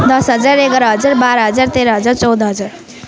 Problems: continuous background conversations